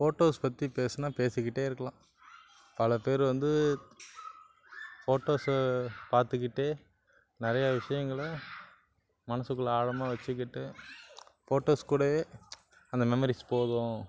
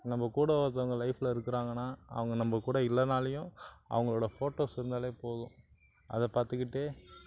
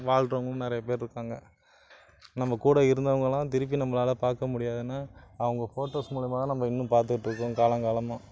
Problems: constant background noise